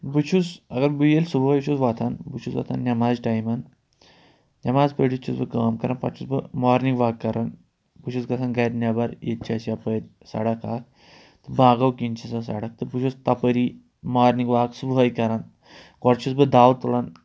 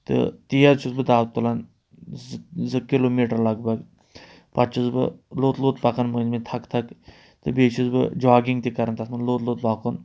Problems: none marked